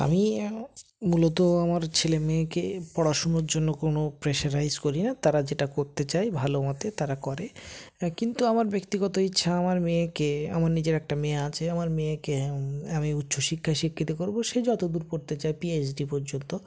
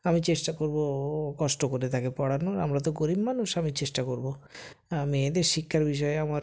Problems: constant background noise